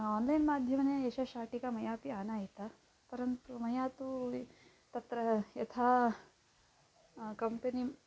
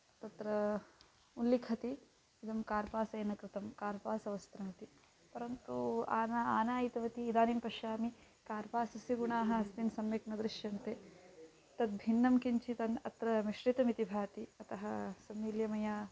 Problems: constant background noise